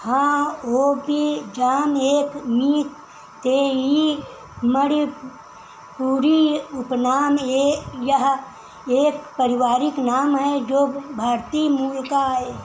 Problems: none marked